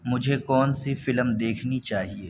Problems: background sounds at intervals